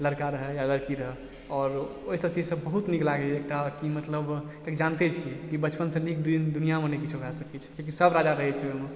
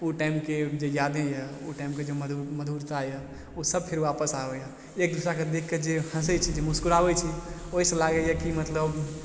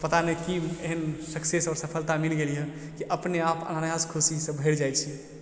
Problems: constant background noise